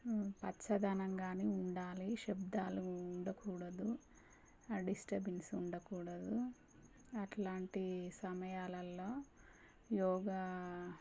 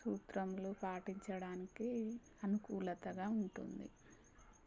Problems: constant background noise, low volume